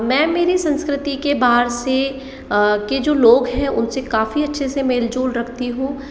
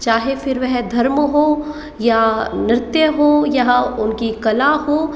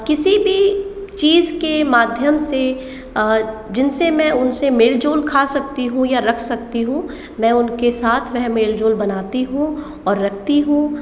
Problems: echo